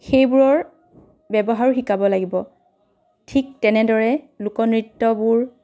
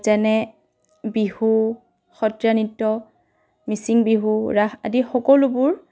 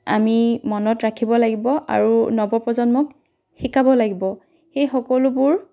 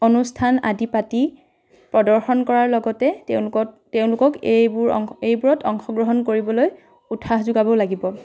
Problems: background conversations at intervals